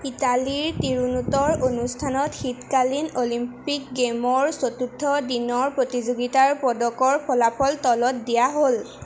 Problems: constant background noise